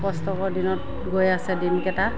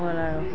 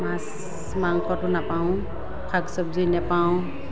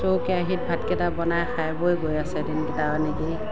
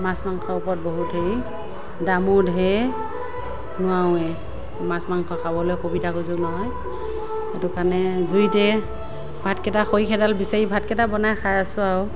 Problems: none marked